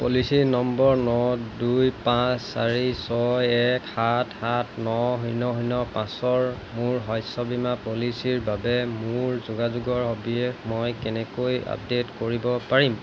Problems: constant background noise